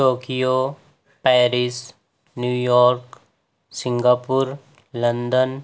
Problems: background sounds at intervals